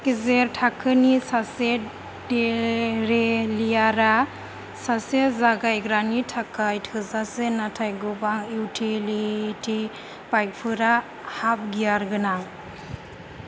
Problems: low volume